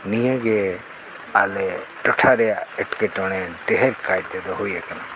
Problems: constant background noise